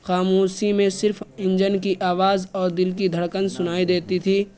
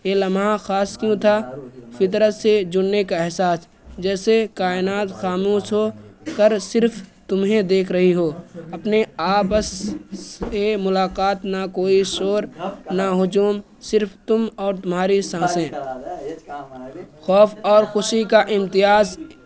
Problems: constant background noise